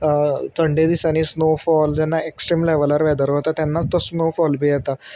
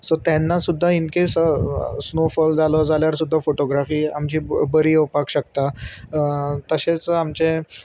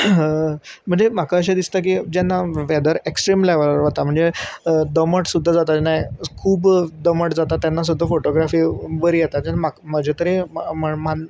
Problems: constant background noise